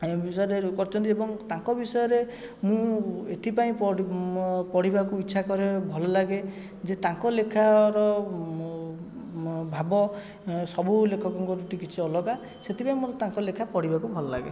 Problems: background sounds at intervals, background conversations at intervals